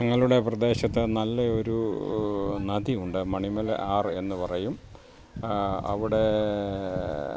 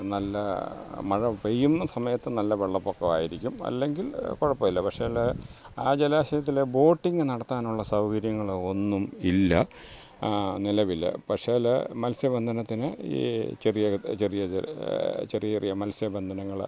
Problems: background sounds at intervals